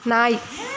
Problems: constant background noise